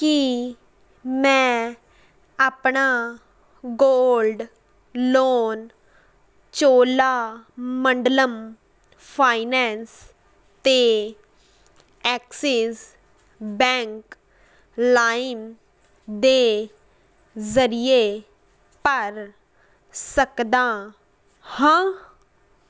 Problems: none marked